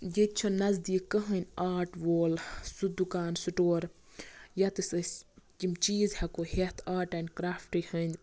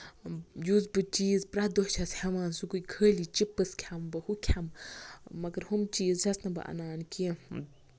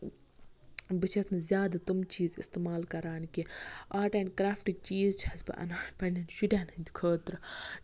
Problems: none marked